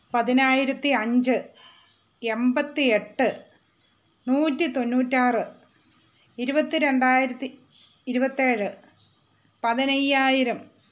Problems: constant background noise